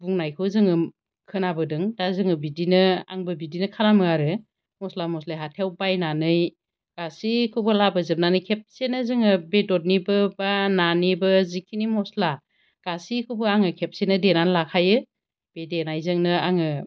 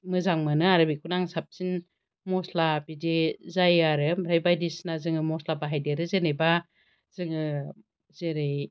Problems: constant background noise